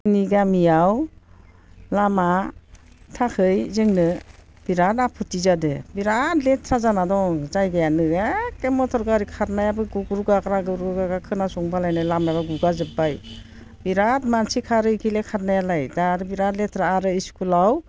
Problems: low volume